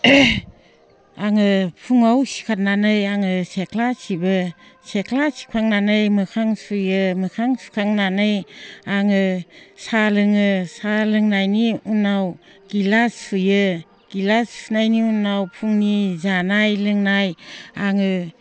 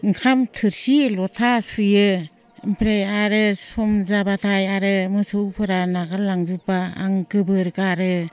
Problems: none marked